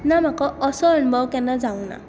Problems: background sounds at intervals